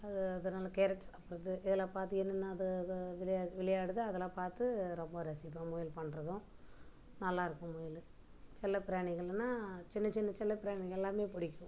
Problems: background sounds at intervals, low volume